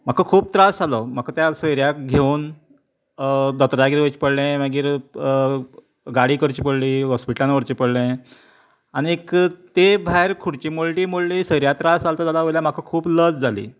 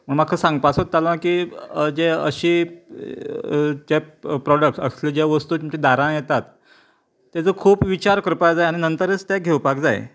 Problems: none marked